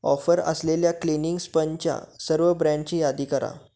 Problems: constant background noise